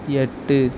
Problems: constant background noise